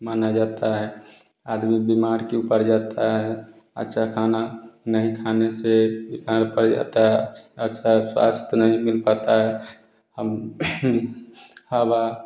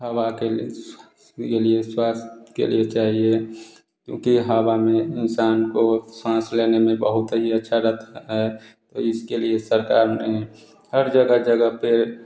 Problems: constant background noise